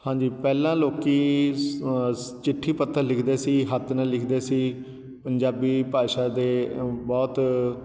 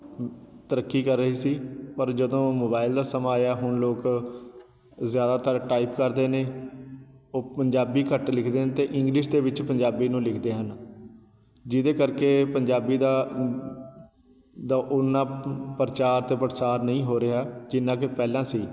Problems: none marked